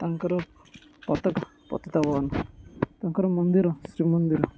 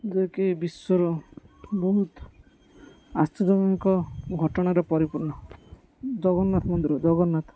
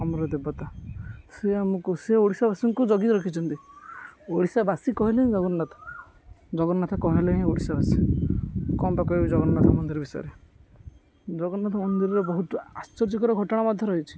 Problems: constant background noise